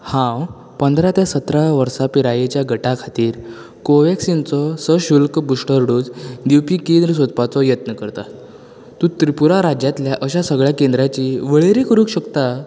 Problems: constant background noise